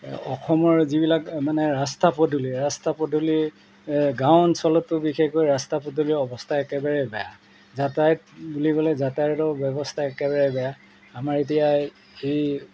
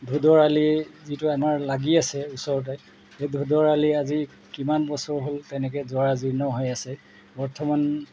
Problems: background sounds at intervals